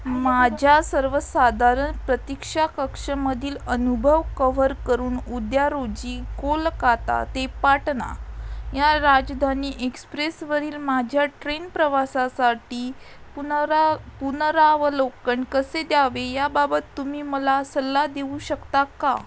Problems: constant background noise, background conversations at intervals